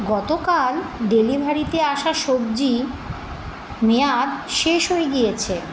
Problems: constant background noise